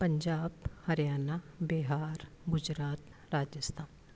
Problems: constant background noise